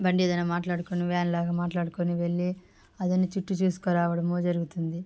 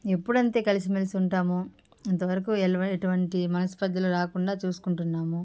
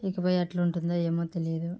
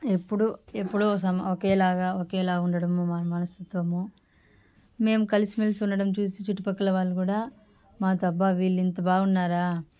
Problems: background sounds at intervals, background conversations at intervals